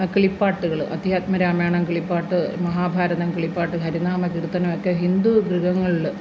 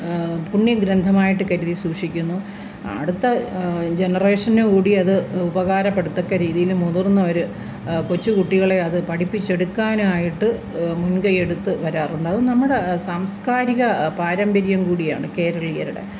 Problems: constant background noise